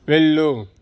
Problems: constant background noise